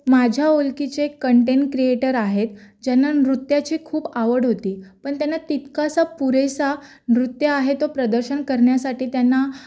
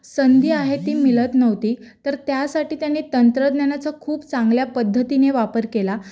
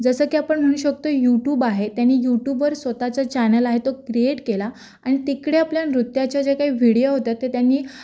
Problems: background conversations at intervals